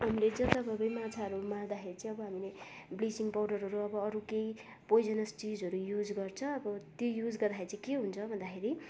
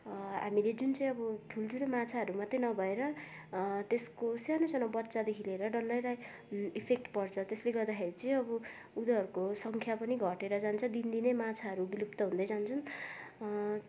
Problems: constant background noise, background conversations at intervals